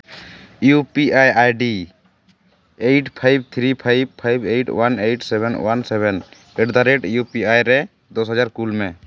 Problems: constant background noise